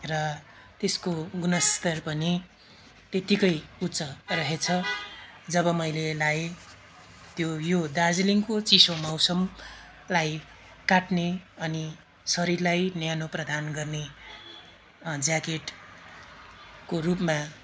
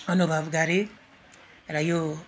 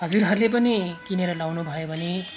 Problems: background sounds at intervals